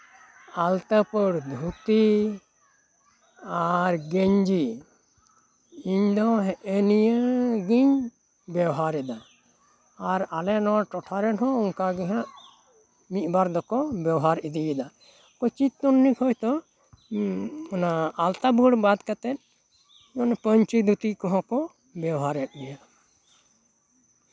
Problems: none marked